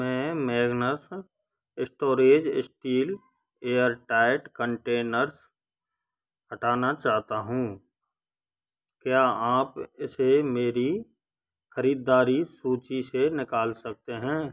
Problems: constant background noise